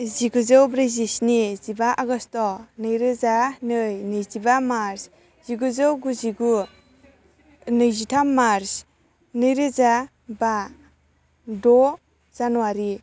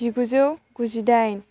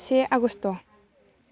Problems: constant background noise